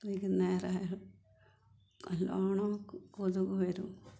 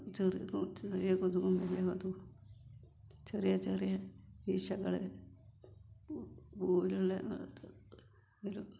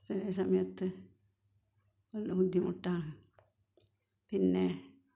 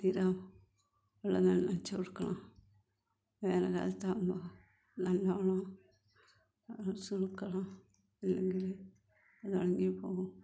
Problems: low volume